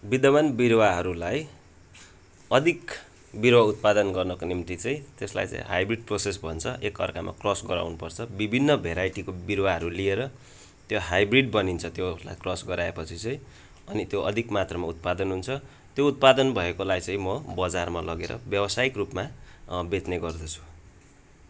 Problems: background sounds at intervals